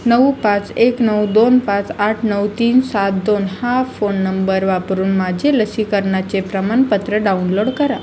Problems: constant background noise